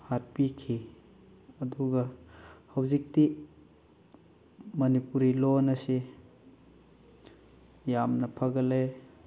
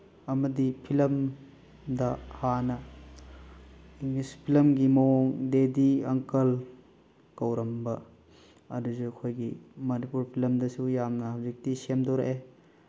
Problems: background sounds at intervals